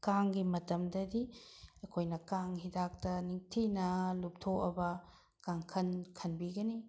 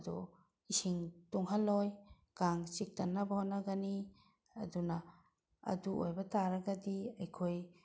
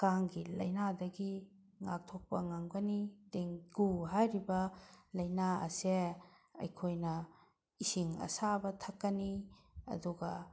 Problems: none marked